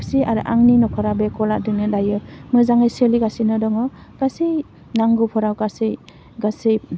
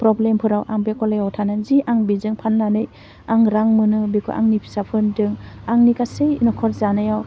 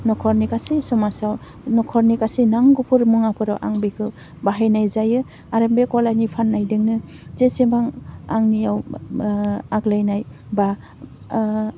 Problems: none marked